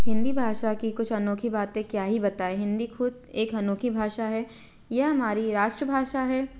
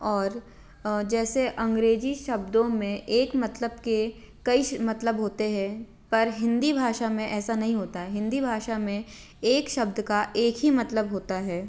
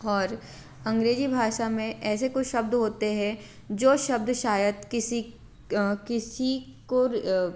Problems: constant background noise